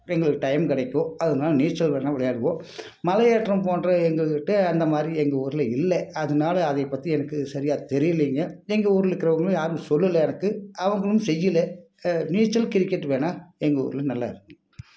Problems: background sounds at intervals